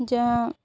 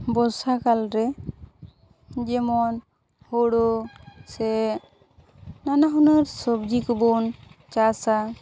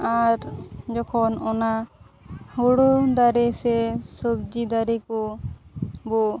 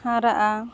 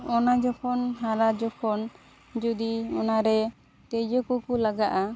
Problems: background sounds at intervals, background conversations at intervals